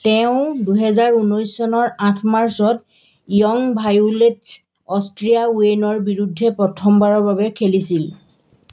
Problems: background sounds at intervals